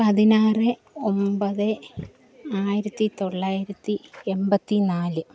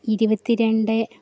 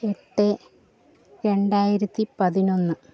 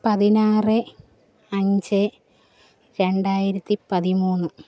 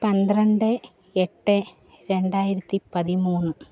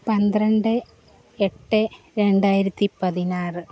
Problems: background sounds at intervals